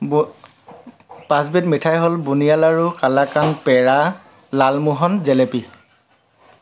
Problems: constant background noise